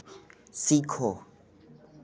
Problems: none marked